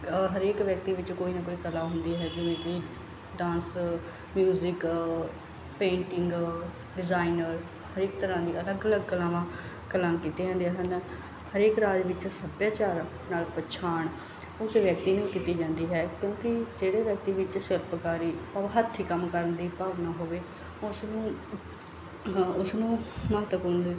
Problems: background sounds at intervals